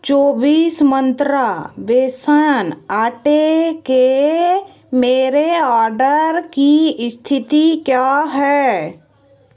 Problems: background sounds at intervals